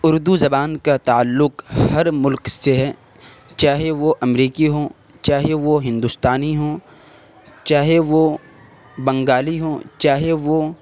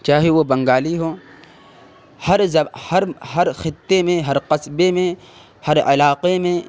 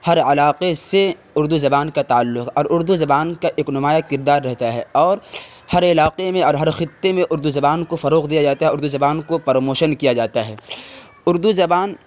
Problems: constant background noise